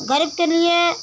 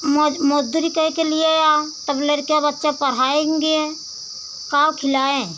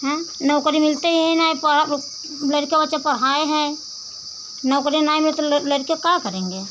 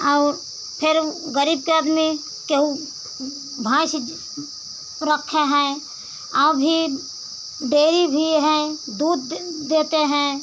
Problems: none marked